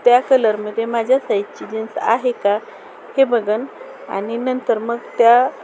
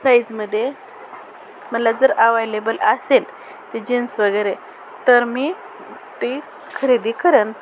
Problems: constant background noise, background conversations at intervals